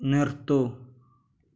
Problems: none marked